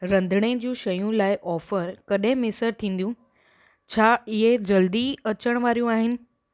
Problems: none marked